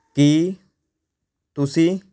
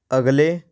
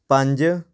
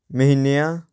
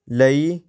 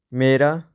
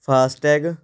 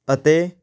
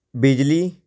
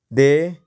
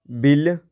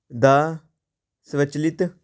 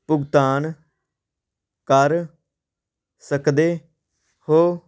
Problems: background sounds at intervals